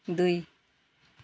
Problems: background sounds at intervals